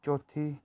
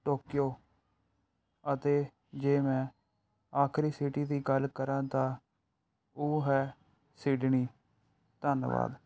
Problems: background sounds at intervals